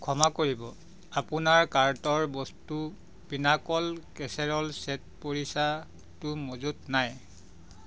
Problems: background sounds at intervals